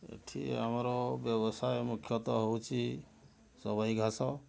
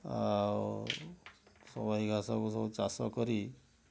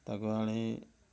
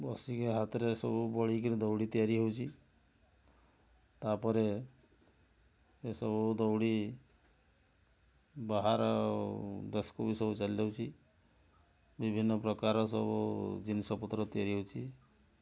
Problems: none marked